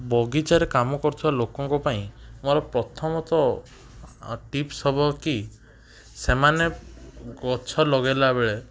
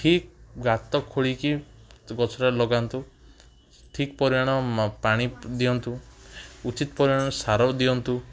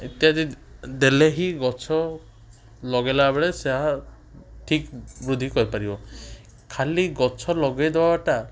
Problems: background sounds at intervals